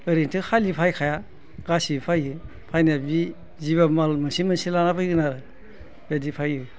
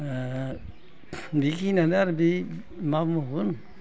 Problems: constant background noise